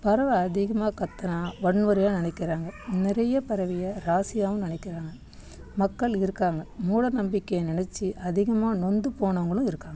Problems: background conversations at intervals